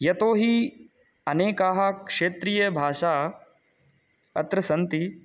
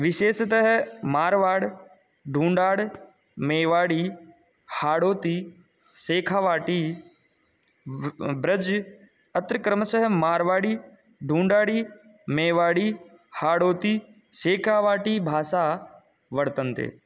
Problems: none marked